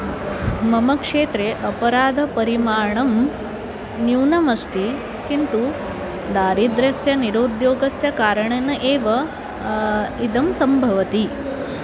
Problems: none marked